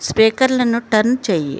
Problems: none marked